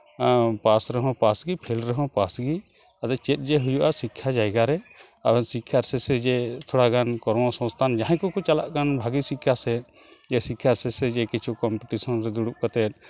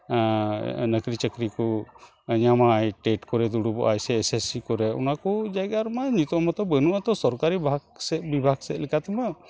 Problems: constant background noise